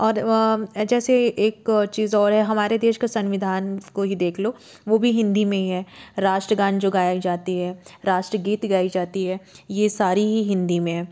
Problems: background sounds at intervals